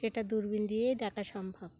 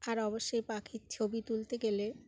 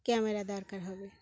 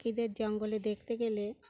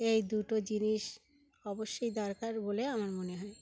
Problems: background sounds at intervals